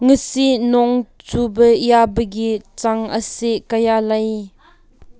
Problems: background conversations at intervals